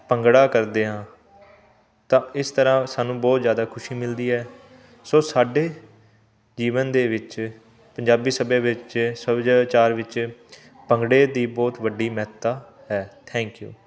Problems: continuous background conversations